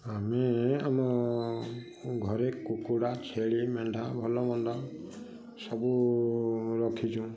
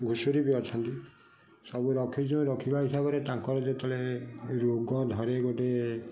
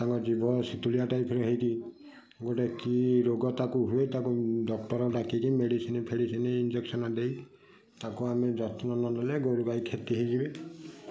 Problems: constant background noise